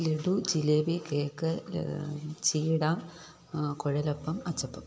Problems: none marked